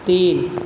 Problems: none marked